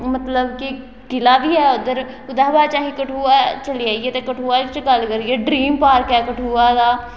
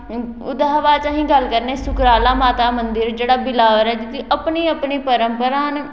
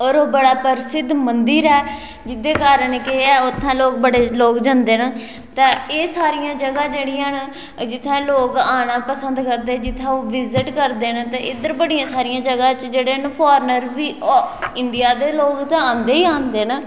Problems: background sounds at intervals, echo